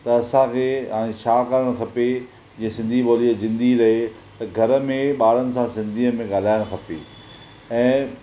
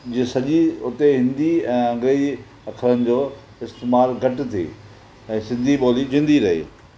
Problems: constant background noise